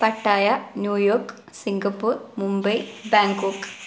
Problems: background sounds at intervals